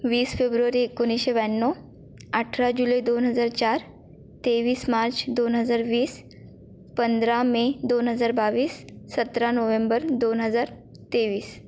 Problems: constant background noise